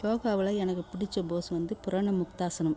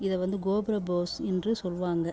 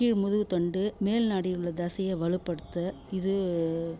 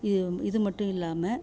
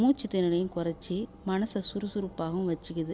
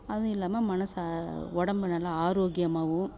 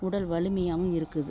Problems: background sounds at intervals